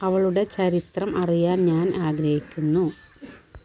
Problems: constant background noise